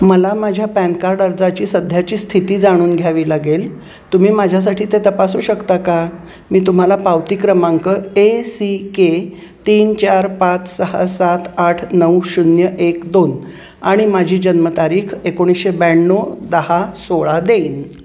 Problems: constant background noise